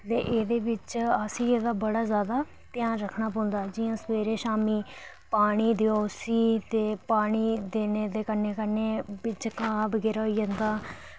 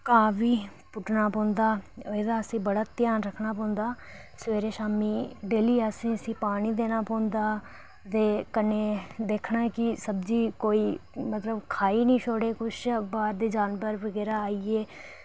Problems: none marked